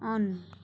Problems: background sounds at intervals